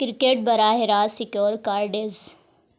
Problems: none marked